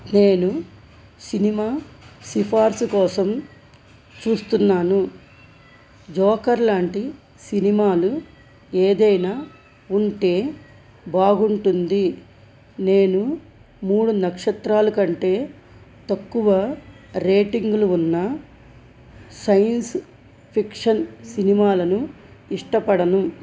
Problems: constant background noise